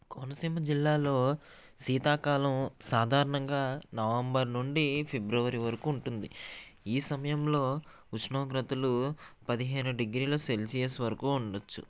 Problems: none marked